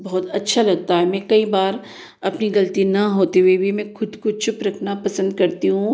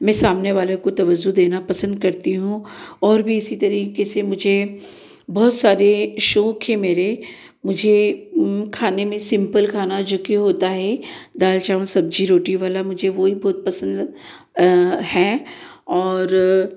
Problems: none marked